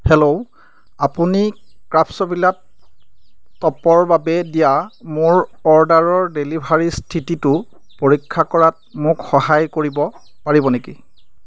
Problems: background sounds at intervals